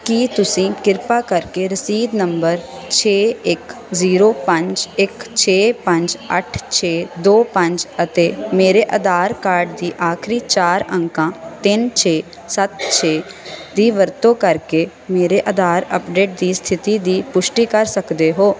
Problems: constant background noise